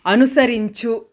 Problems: constant background noise